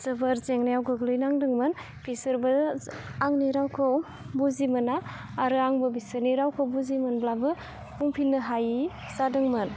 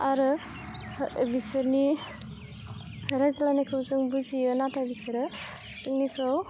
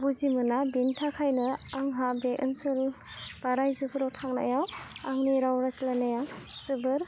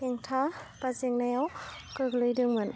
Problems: low volume